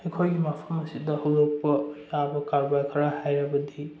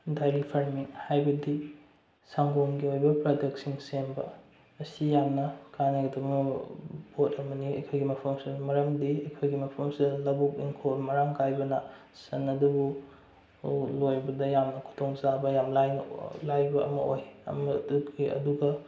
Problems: low volume